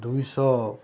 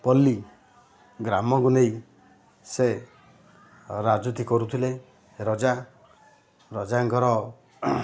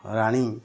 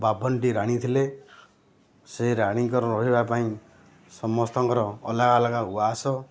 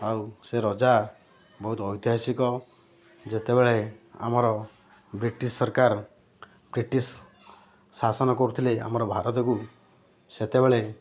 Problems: none marked